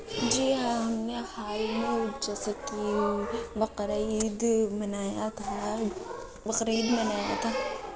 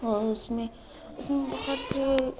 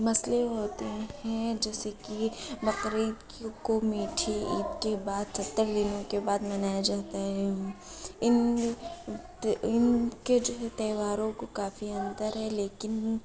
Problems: constant background noise, low volume